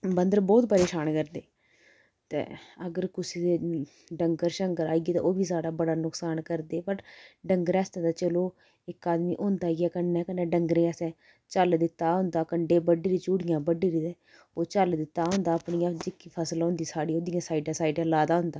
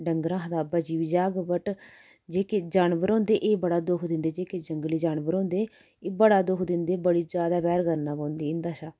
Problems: constant background noise